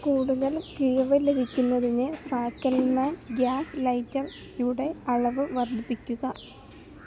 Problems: constant background noise, low volume